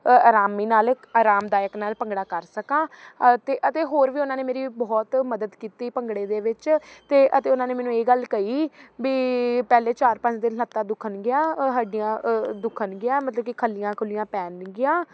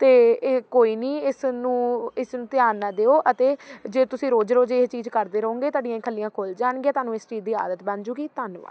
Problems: none marked